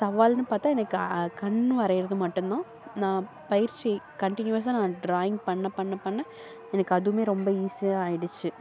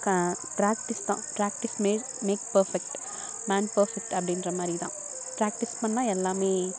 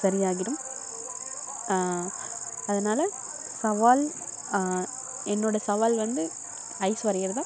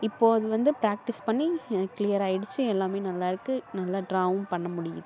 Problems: background sounds at intervals